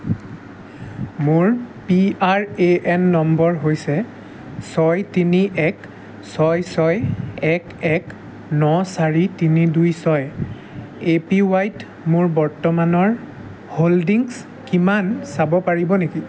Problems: constant background noise, background conversations at intervals